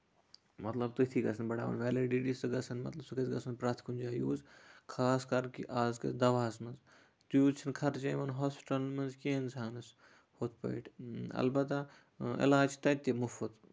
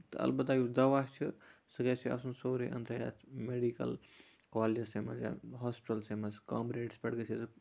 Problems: constant background noise